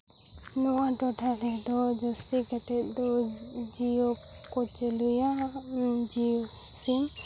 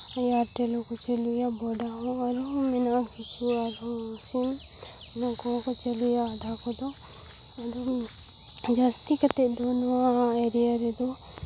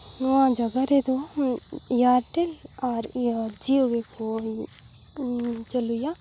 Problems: none marked